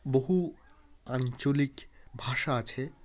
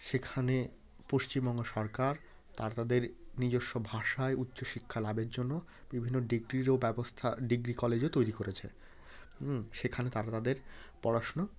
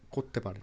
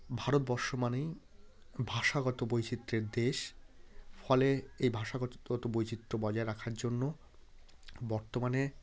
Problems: constant background noise, background conversations at intervals